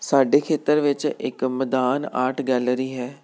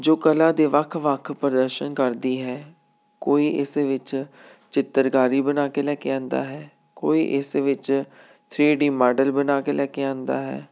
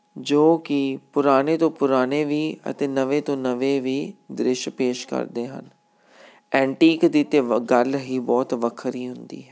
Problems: none marked